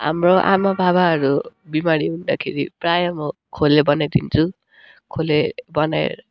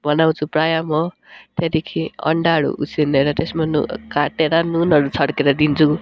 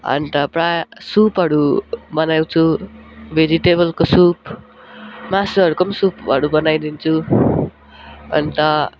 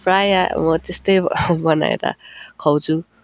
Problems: background sounds at intervals